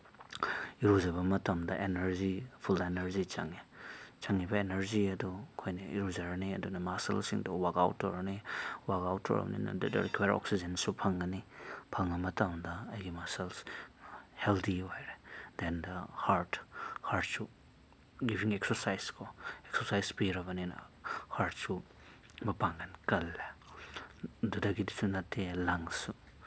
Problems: none marked